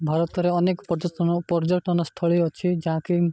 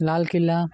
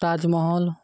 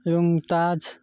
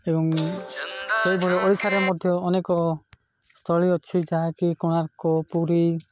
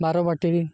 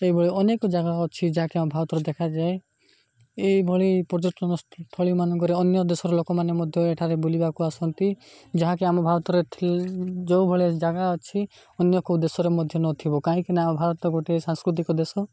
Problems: background sounds at intervals